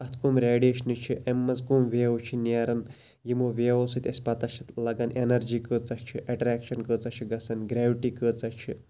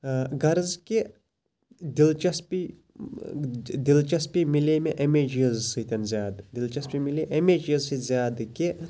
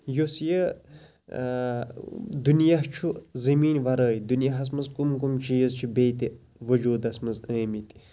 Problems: constant background noise